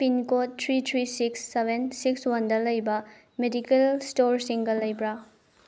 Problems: low volume